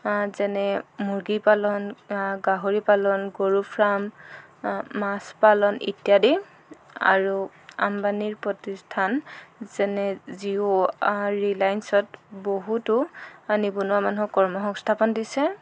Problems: background sounds at intervals